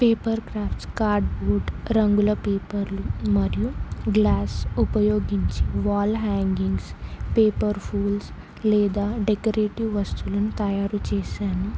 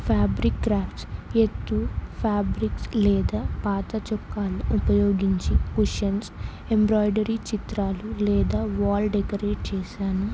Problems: none marked